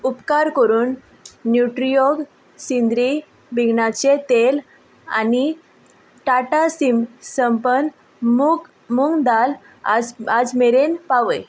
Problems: background sounds at intervals